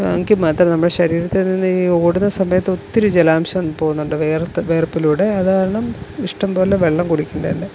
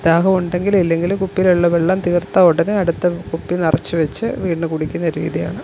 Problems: background sounds at intervals